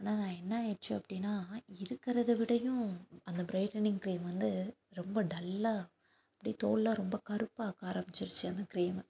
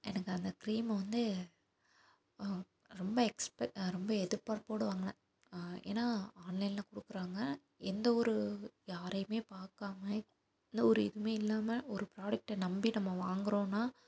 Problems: none marked